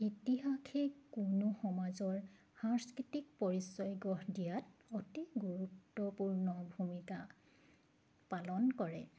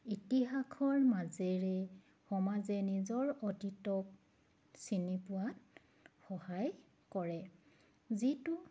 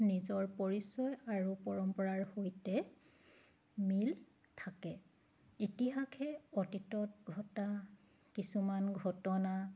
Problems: none marked